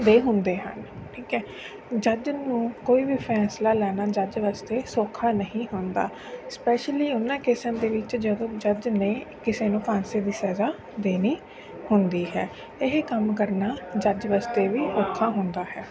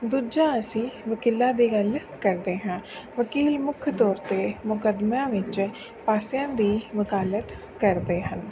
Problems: none marked